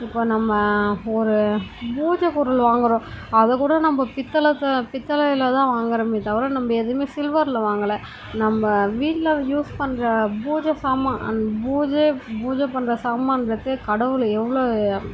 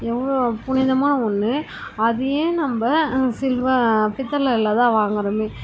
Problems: constant background noise